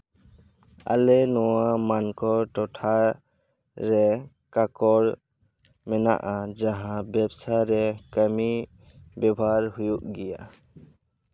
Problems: background sounds at intervals